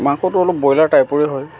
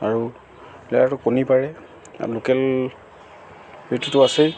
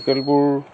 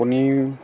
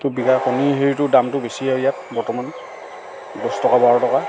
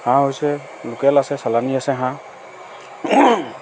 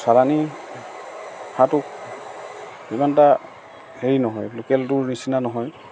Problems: constant background noise, background conversations at intervals